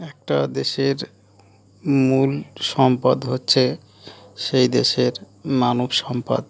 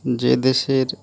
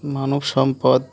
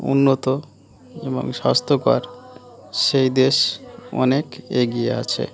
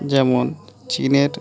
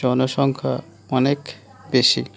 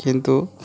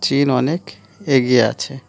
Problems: none marked